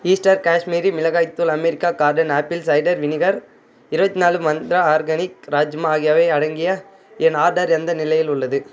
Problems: constant background noise